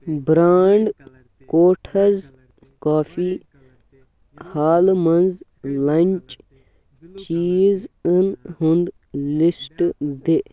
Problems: background sounds at intervals